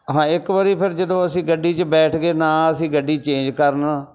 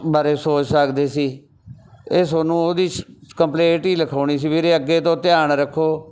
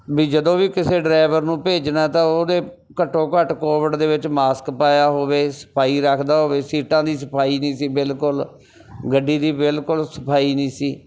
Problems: none marked